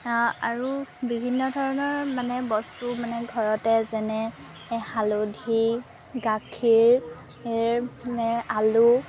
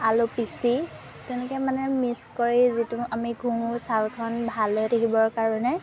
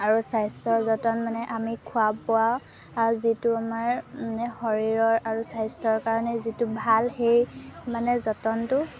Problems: constant background noise